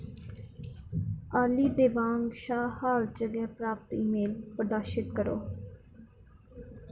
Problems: none marked